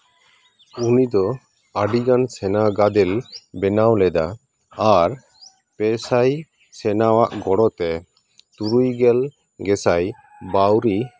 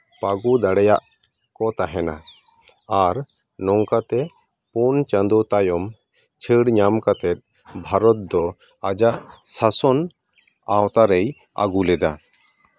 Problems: background sounds at intervals